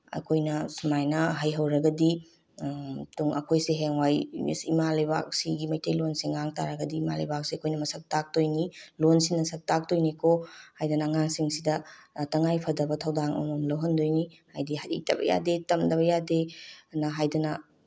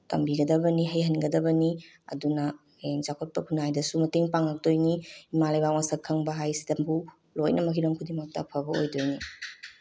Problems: background sounds at intervals